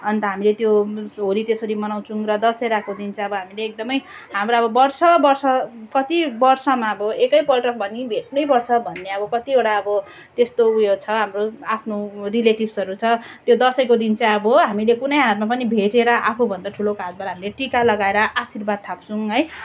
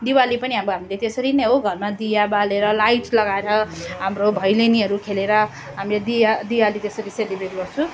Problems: continuous background conversations